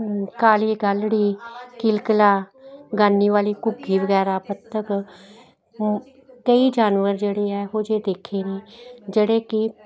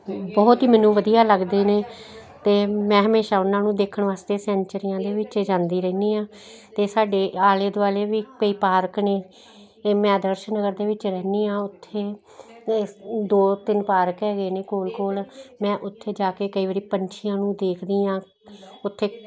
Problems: continuous background conversations